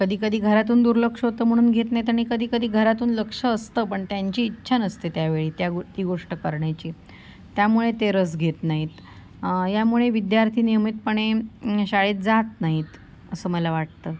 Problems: constant background noise, background conversations at intervals